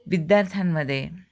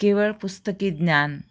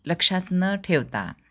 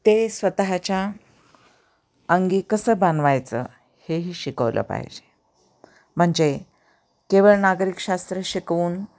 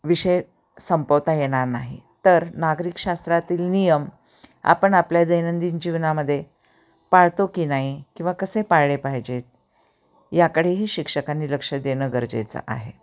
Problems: constant background noise, background conversations at intervals